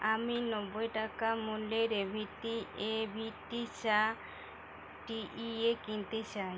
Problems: constant background noise